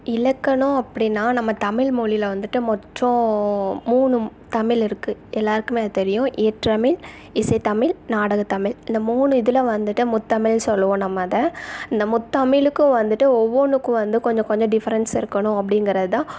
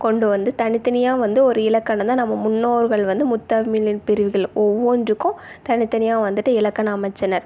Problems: background sounds at intervals